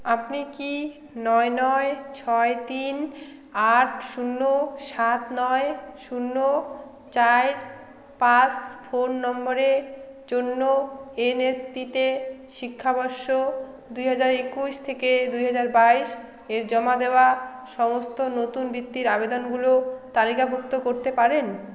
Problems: none marked